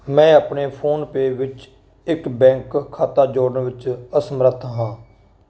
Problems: none marked